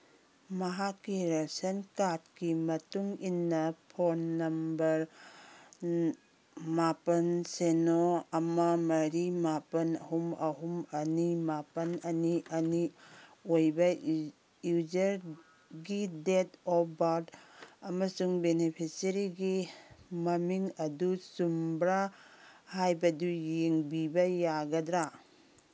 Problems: background sounds at intervals